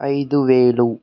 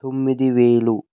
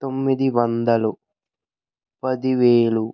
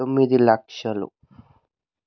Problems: none marked